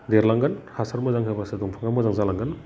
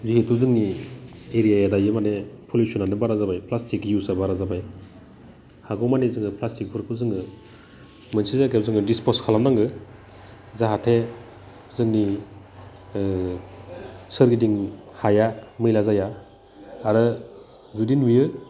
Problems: none marked